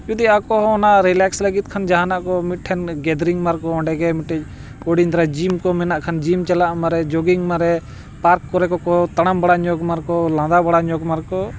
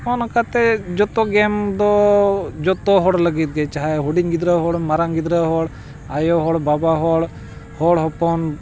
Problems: constant background noise